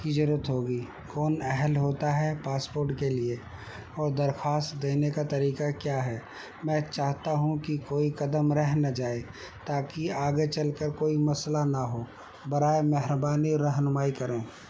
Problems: constant background noise